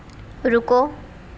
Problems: constant background noise